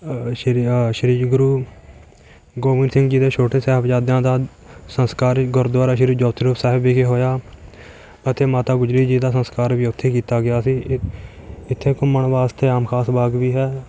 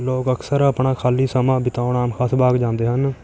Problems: constant background noise